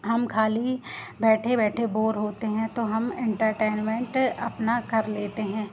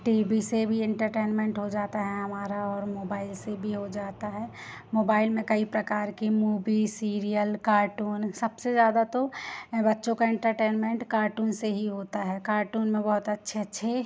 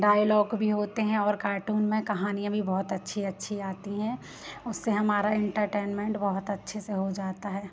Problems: constant background noise